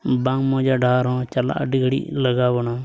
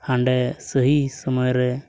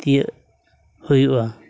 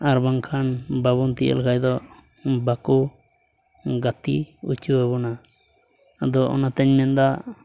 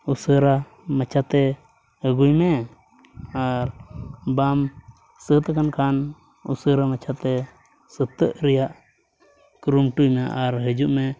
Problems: background sounds at intervals